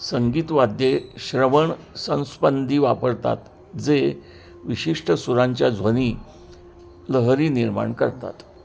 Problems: constant background noise, continuous background conversations